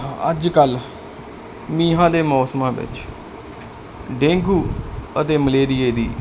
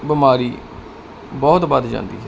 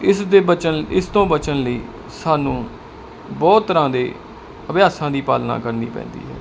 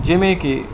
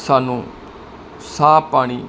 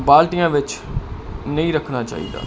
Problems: background sounds at intervals